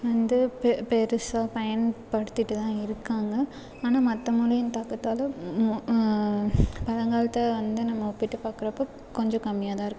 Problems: constant background noise